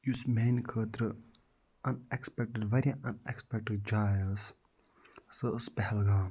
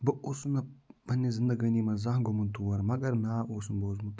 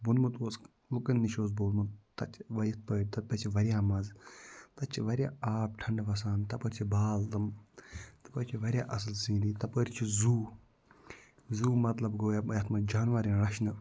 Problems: low volume